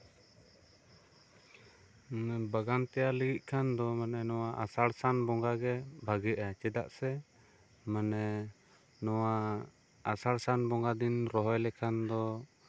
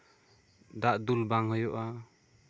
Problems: constant background noise